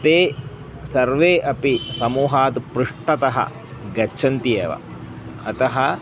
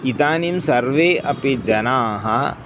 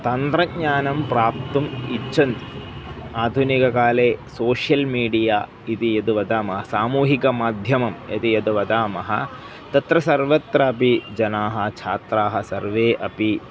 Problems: none marked